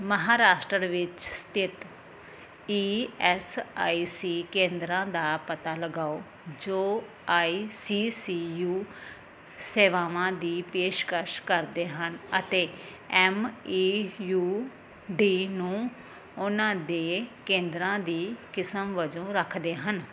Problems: none marked